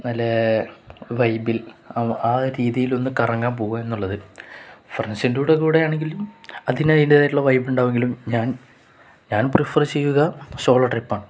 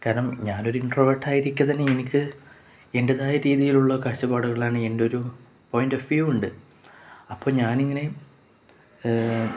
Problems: none marked